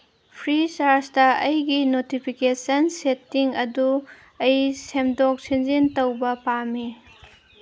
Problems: constant background noise